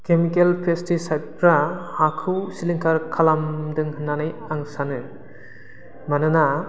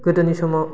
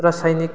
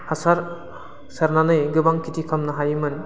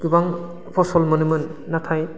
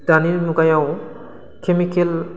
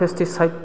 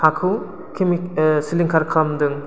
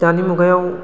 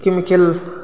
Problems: constant background noise